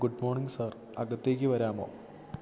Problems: low volume